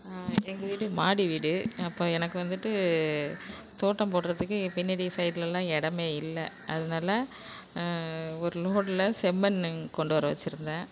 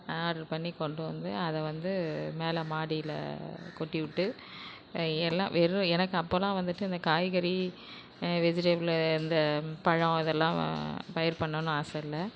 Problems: constant background noise